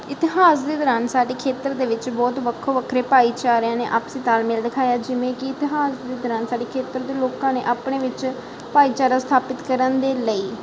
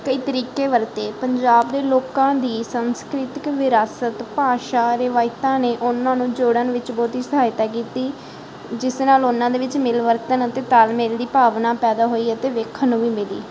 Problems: none marked